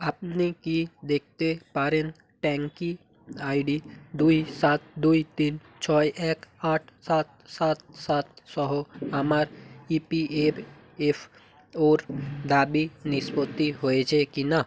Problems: background sounds at intervals